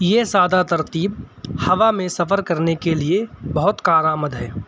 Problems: none marked